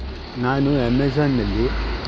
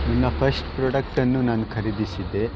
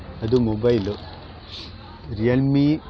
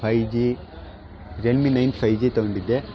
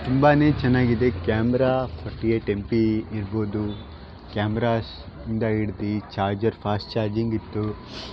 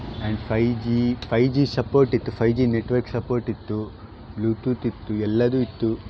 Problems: constant background noise